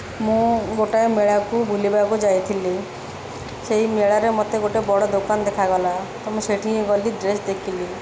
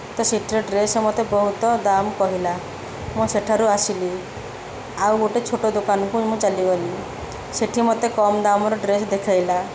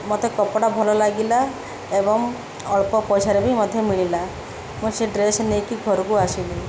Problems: constant background noise